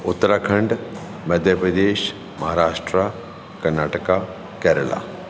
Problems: constant background noise, echo